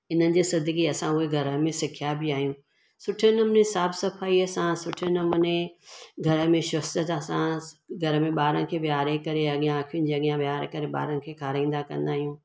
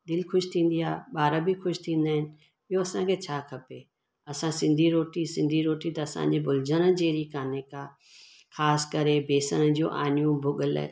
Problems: constant background noise, echo